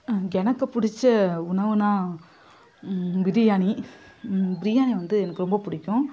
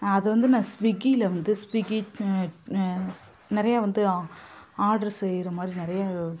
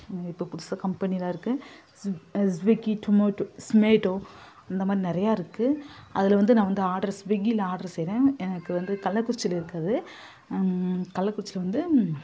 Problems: constant background noise